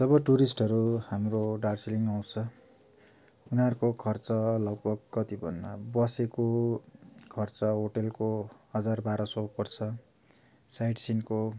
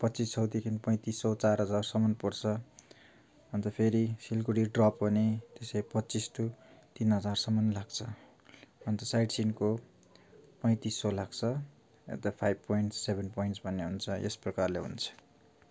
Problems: none marked